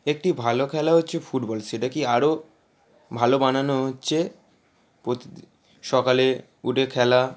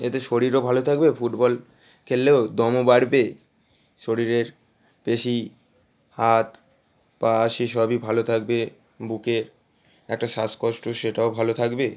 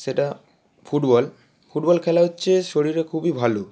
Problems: none marked